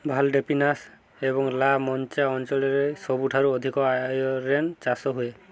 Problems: none marked